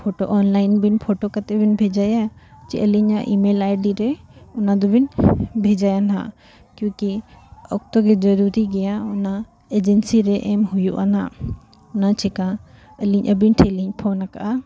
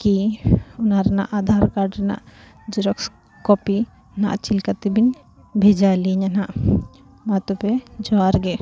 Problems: constant background noise, continuous background conversations